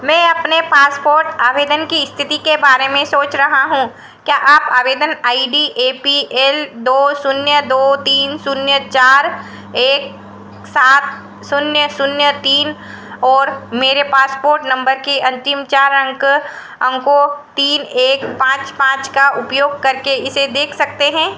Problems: echo